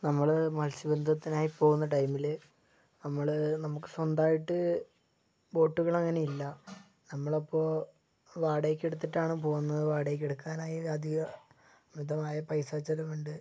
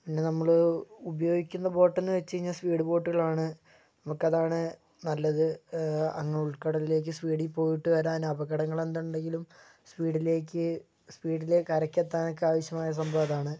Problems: low volume